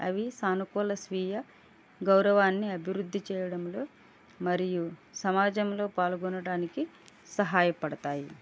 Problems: low volume